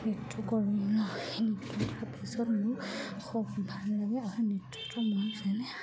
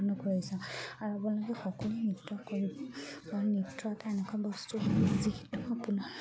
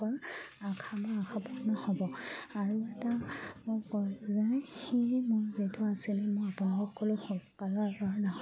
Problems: background sounds at intervals